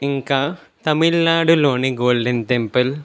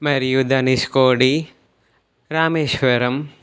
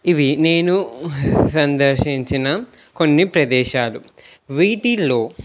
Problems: none marked